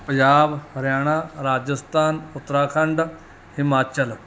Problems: none marked